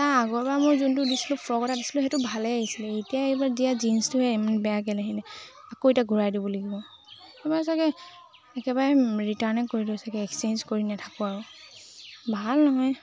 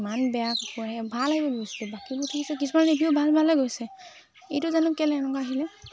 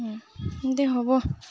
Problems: constant background noise, background conversations at intervals